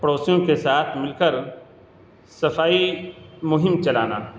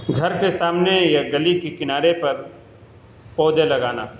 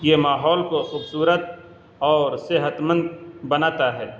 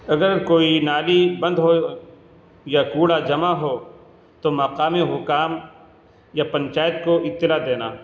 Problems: constant background noise